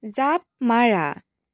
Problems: none marked